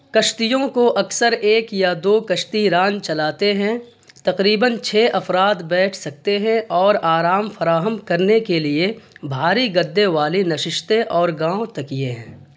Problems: constant background noise